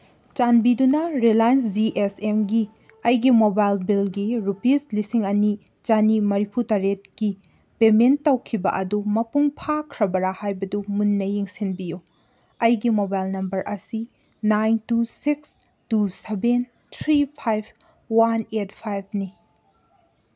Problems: none marked